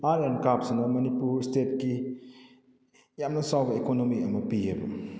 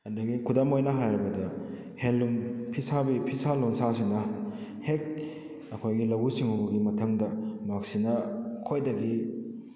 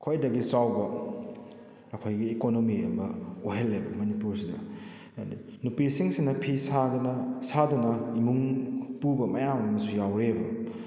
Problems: none marked